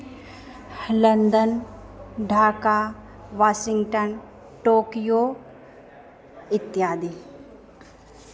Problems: background conversations at intervals